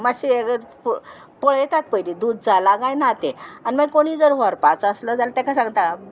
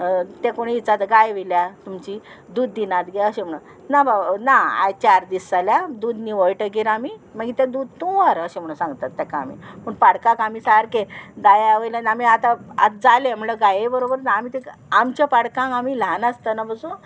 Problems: constant background noise